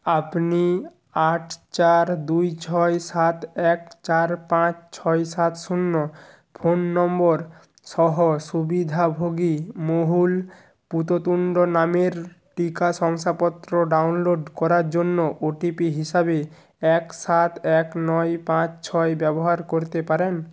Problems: background sounds at intervals